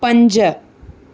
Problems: none marked